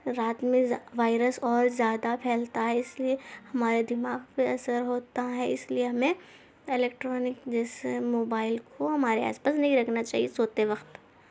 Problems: none marked